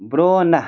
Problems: constant background noise